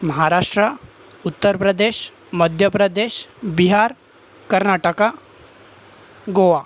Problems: constant background noise